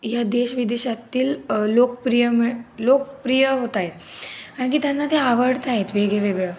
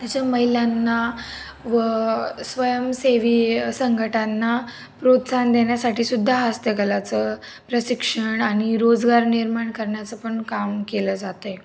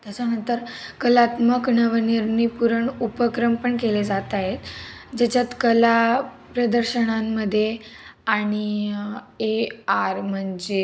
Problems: constant background noise, background conversations at intervals